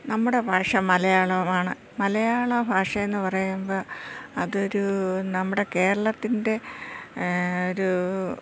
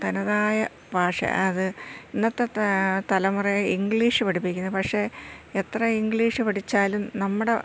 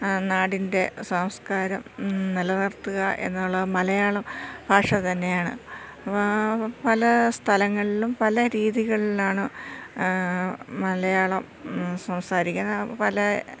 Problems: constant background noise, low volume